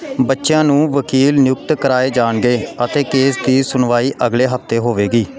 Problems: continuous background conversations